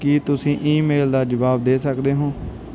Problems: background sounds at intervals